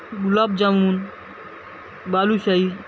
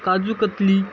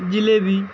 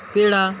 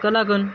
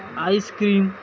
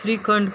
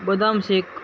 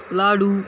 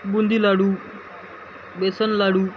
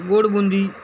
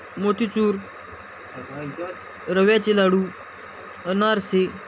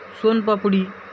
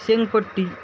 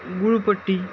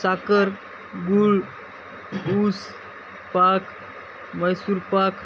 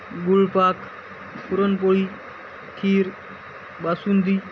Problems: constant background noise